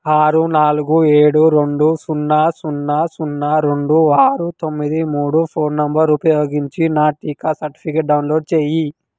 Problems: none marked